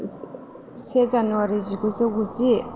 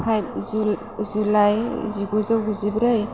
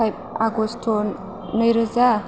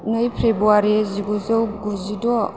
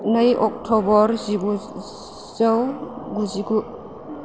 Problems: constant background noise